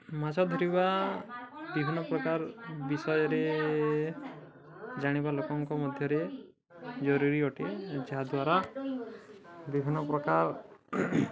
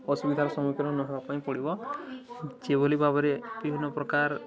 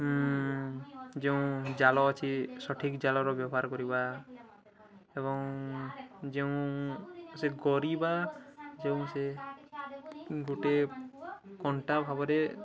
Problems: none marked